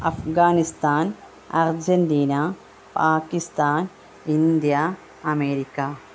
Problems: none marked